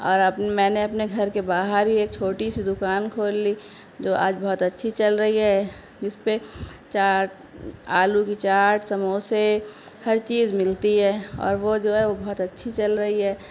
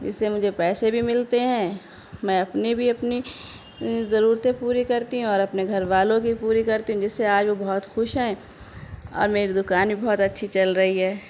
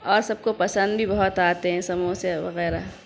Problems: none marked